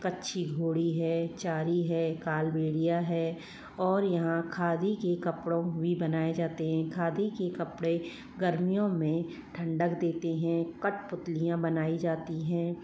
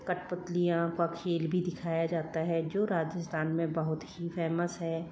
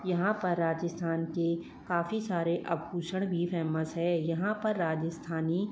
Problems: low volume